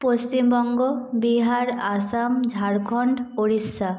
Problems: echo